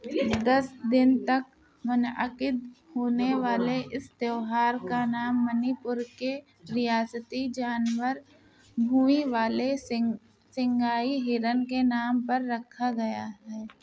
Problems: continuous background conversations